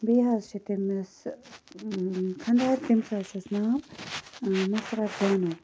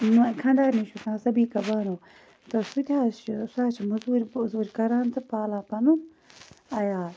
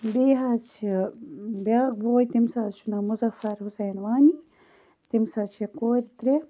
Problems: background sounds at intervals